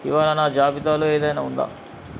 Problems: constant background noise